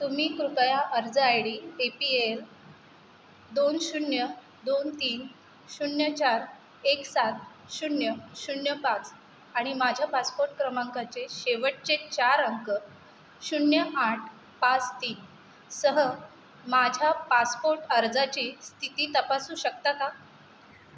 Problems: constant background noise